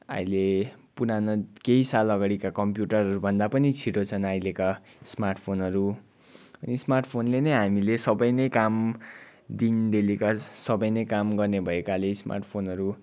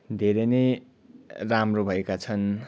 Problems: background sounds at intervals